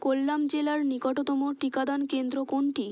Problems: constant background noise